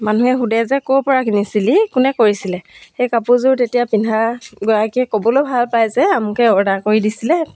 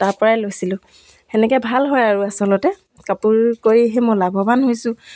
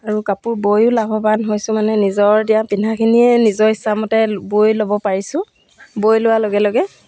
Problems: none marked